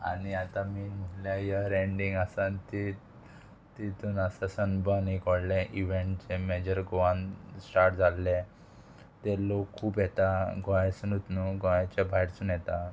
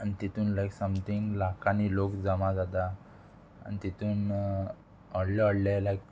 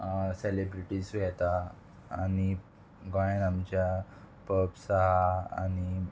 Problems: constant background noise